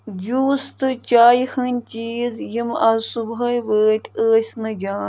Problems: none marked